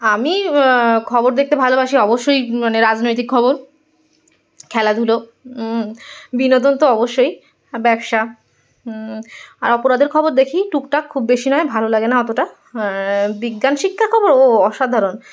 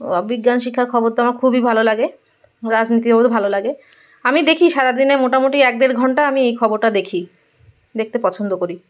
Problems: none marked